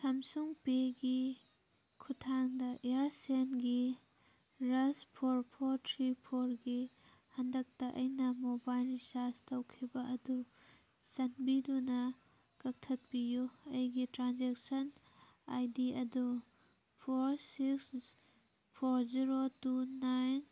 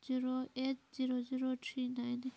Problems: background sounds at intervals